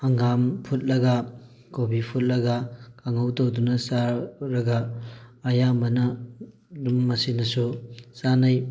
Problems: none marked